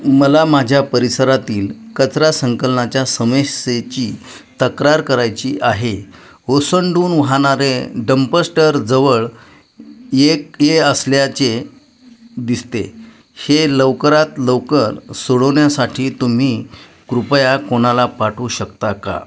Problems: constant background noise, background conversations at intervals